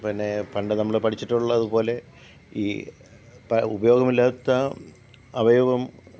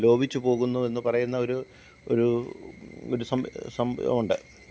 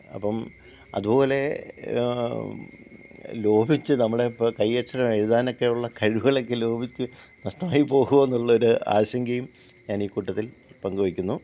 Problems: low volume